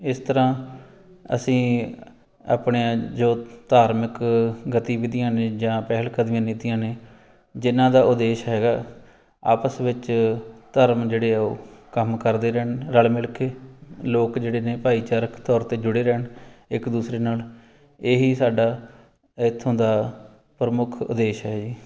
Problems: background sounds at intervals